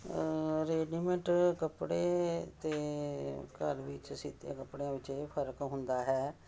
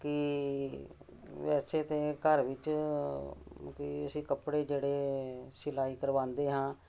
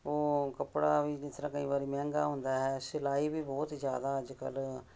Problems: background sounds at intervals